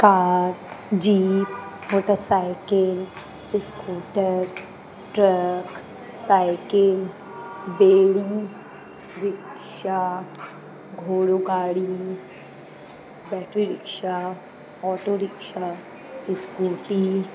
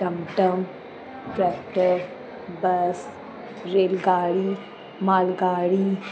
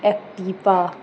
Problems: constant background noise